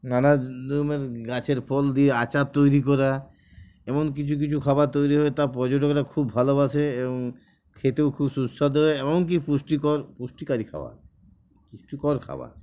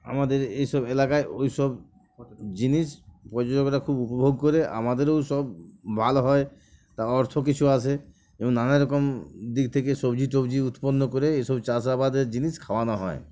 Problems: background sounds at intervals